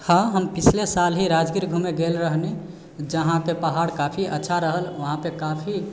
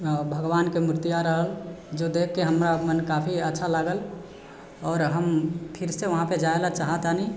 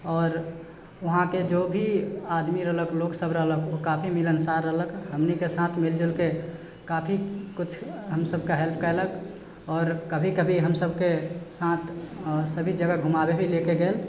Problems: none marked